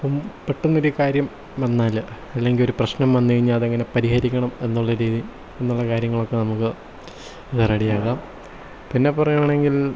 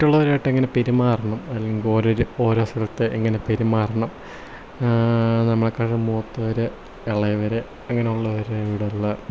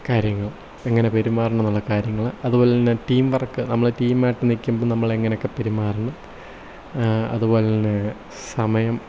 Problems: low volume